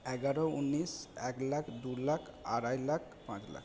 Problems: none marked